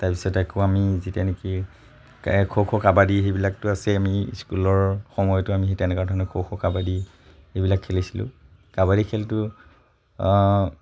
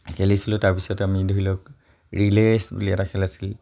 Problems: none marked